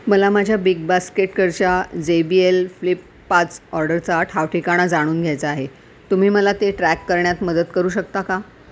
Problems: none marked